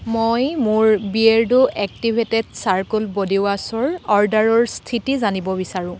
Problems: none marked